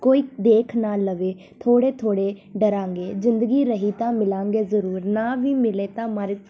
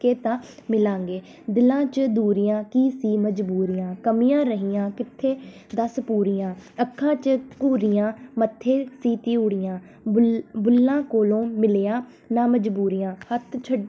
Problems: none marked